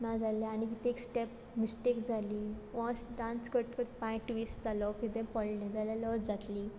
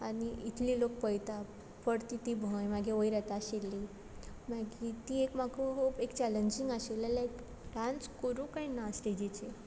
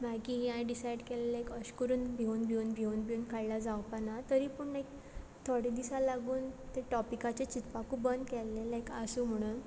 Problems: background sounds at intervals